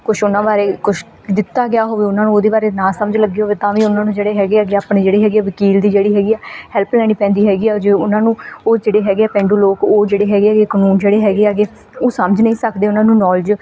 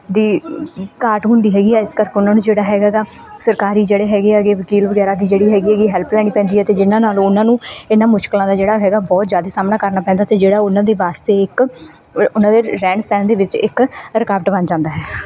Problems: background conversations at intervals